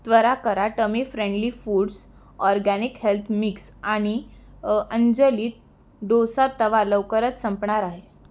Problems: background sounds at intervals